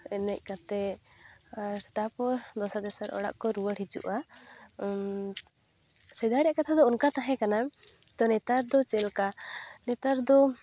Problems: none marked